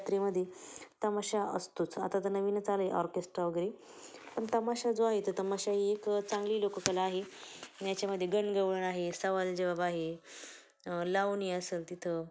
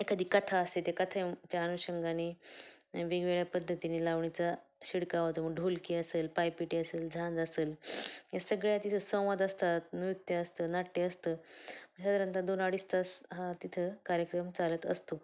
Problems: low volume